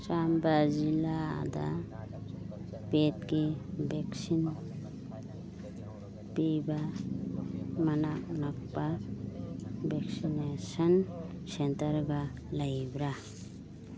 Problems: background sounds at intervals, background conversations at intervals